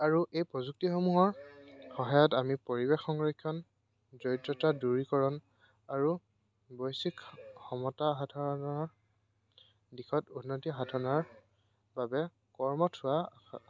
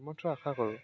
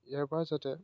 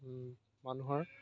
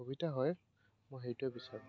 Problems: none marked